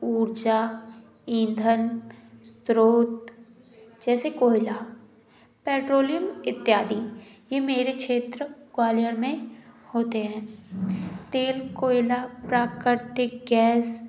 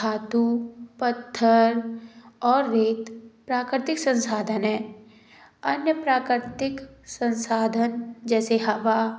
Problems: background sounds at intervals